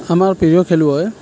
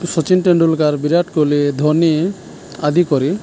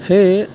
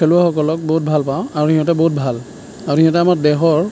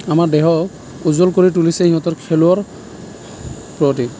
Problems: none marked